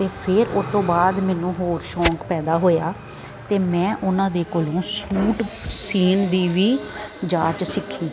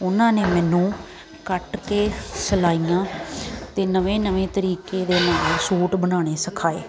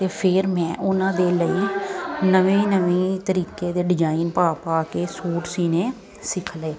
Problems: constant background noise